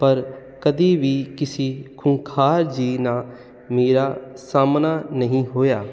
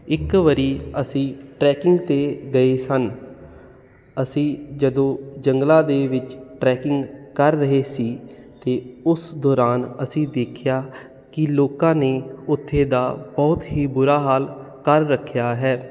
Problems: none marked